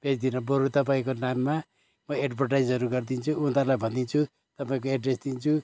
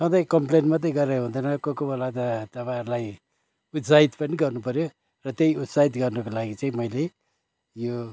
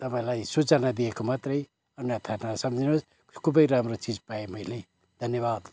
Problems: background sounds at intervals